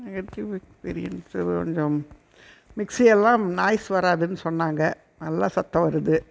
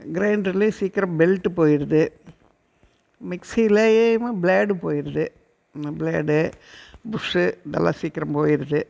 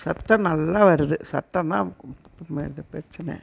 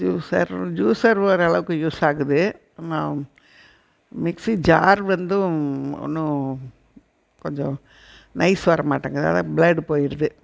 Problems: background sounds at intervals